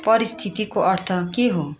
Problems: continuous background conversations